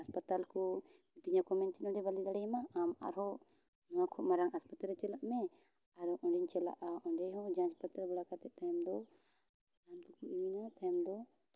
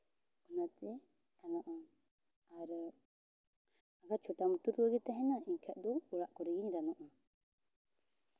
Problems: none marked